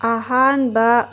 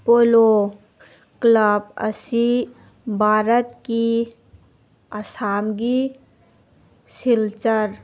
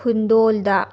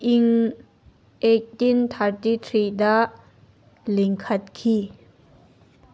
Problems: background sounds at intervals